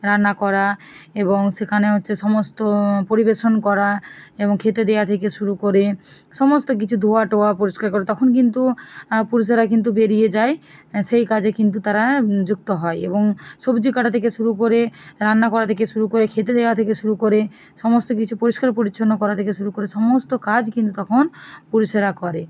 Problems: none marked